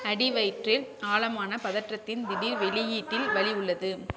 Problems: background sounds at intervals, low volume